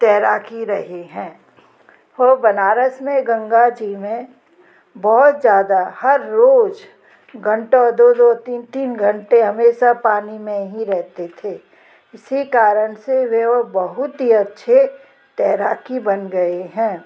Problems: constant background noise